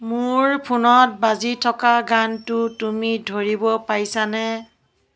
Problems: background conversations at intervals